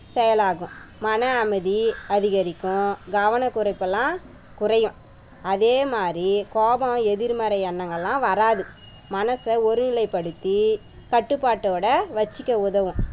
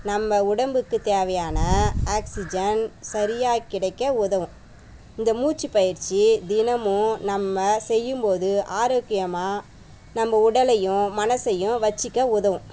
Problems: background sounds at intervals